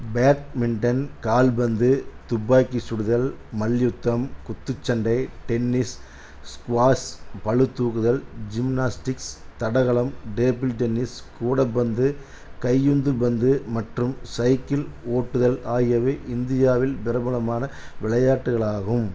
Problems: none marked